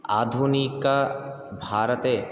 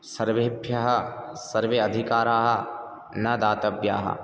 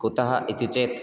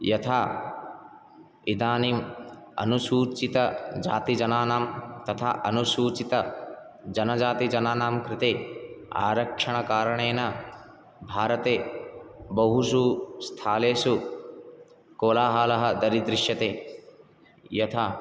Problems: none marked